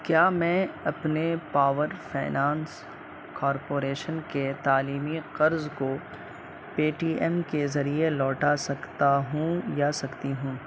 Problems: constant background noise, low volume